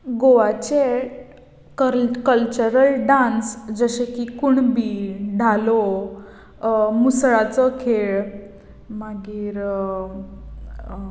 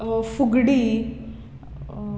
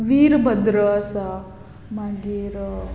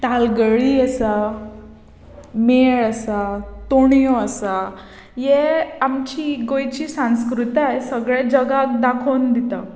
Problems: background sounds at intervals